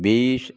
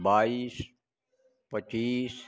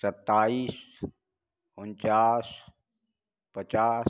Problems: none marked